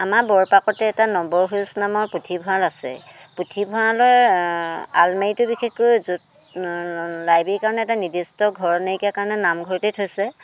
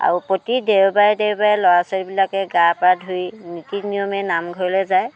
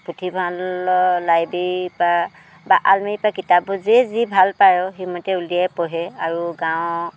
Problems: none marked